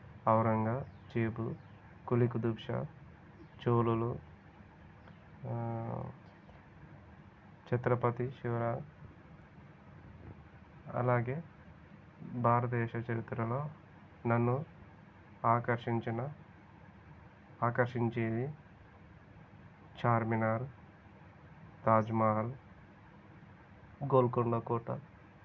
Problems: constant background noise, low volume